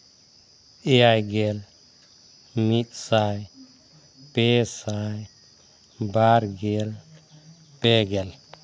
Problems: none marked